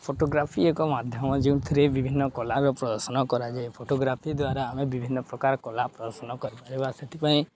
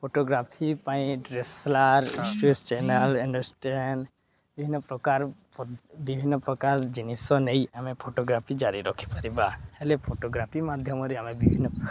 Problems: constant background noise, continuous background conversations